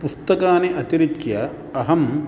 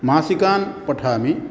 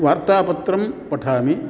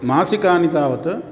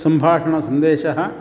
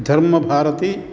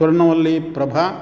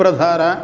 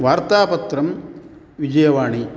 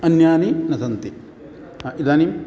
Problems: background sounds at intervals